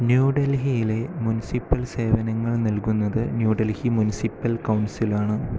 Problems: constant background noise